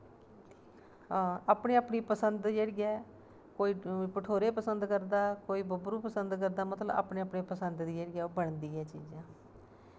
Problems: constant background noise